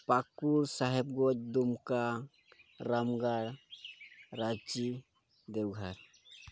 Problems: constant background noise